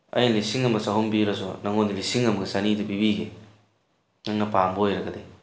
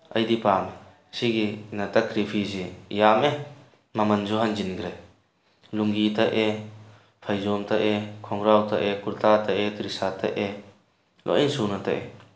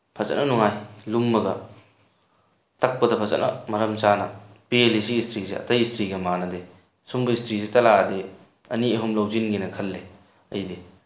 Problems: none marked